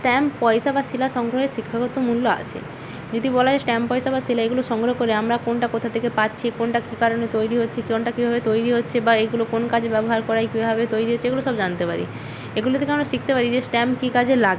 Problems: constant background noise